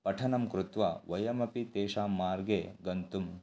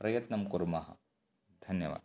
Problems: none marked